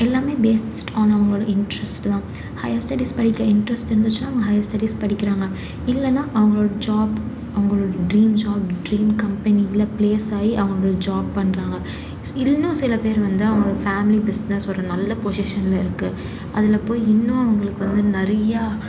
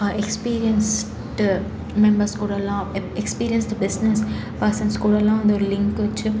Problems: constant background noise